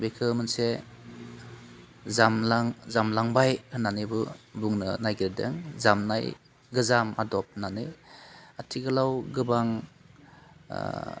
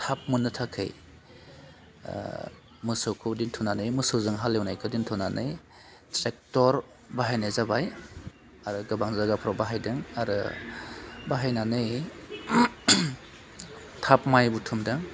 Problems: constant background noise